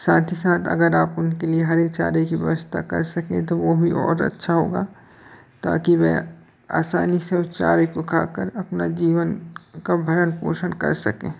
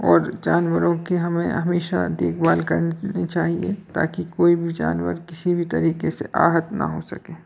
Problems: constant background noise, background conversations at intervals